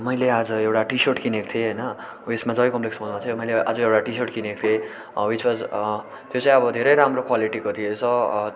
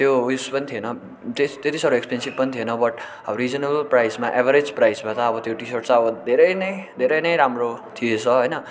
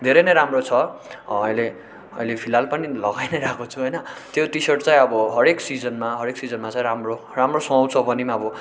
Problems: background sounds at intervals